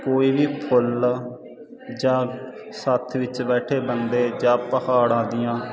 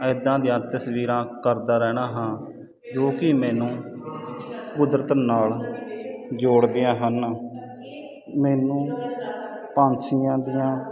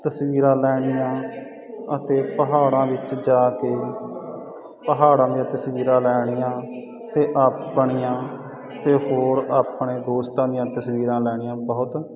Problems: constant background noise